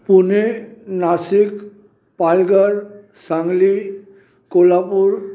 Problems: background sounds at intervals, echo